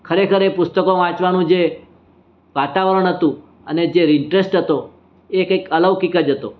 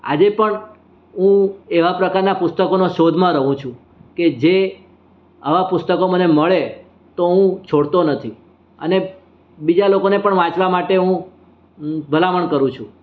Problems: none marked